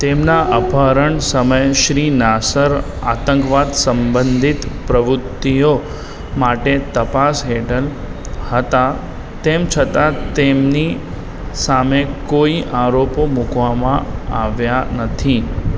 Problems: constant background noise, background conversations at intervals